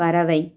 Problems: none marked